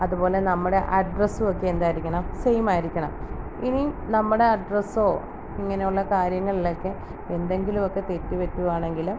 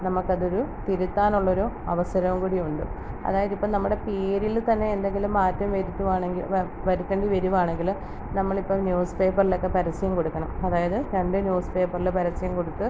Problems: background sounds at intervals